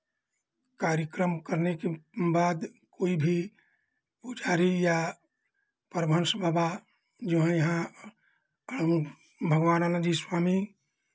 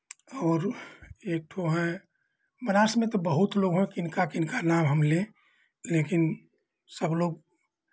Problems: background sounds at intervals